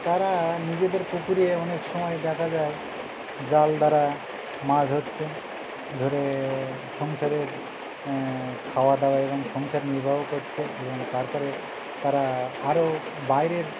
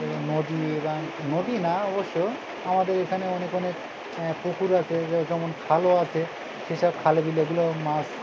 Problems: constant background noise, continuous background conversations